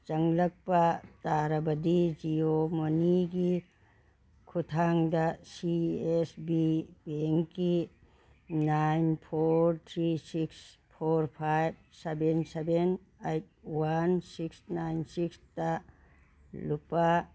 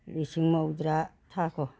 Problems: background sounds at intervals